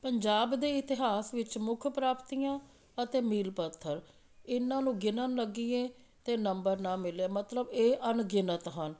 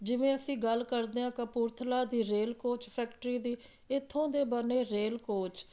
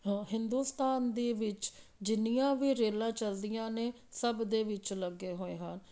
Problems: none marked